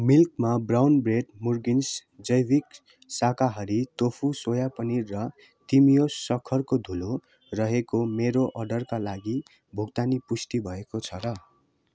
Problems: constant background noise